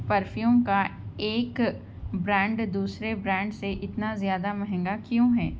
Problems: none marked